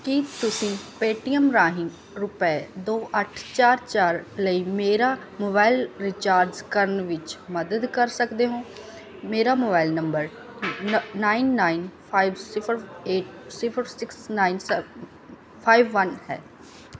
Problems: background sounds at intervals